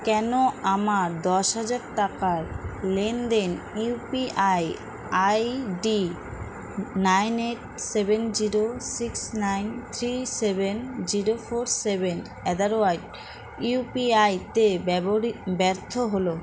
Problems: constant background noise